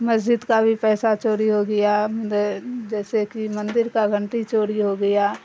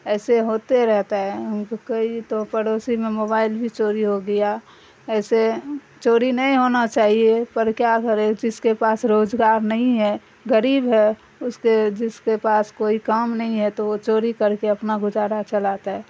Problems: constant background noise